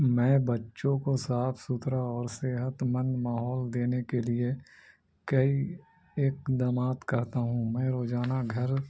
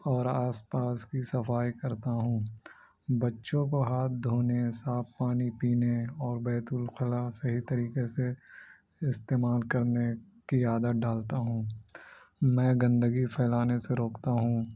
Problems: constant background noise